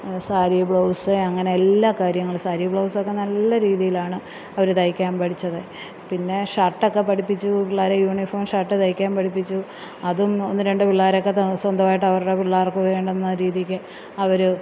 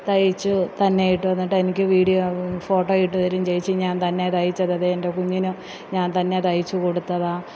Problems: none marked